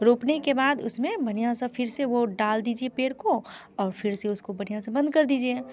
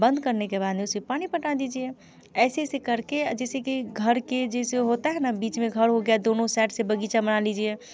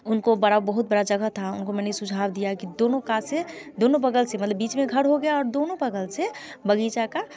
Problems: background sounds at intervals, continuous background conversations